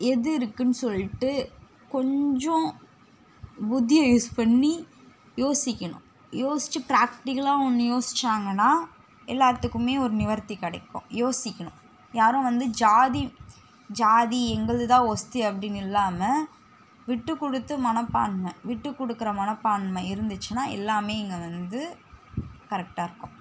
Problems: background sounds at intervals